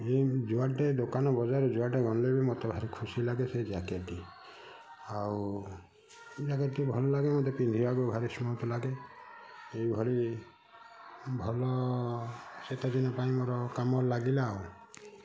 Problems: none marked